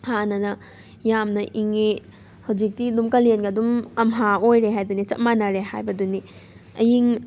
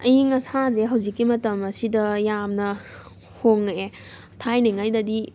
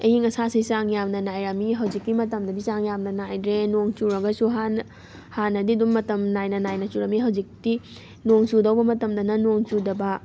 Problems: background sounds at intervals